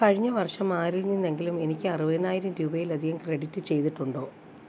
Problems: background sounds at intervals